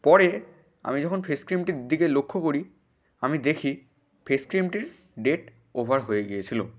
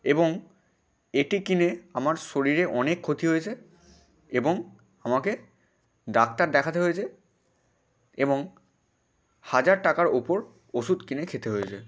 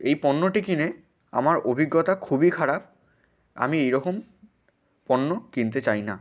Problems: constant background noise